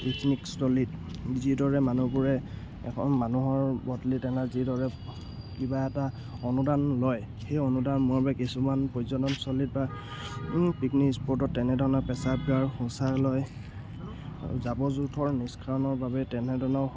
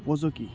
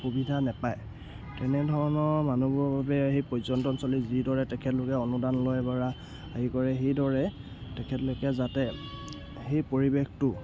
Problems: background sounds at intervals